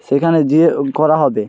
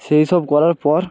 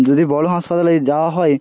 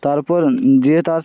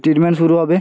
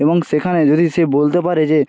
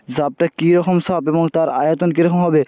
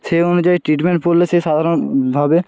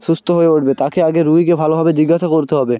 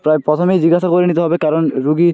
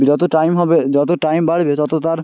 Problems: none marked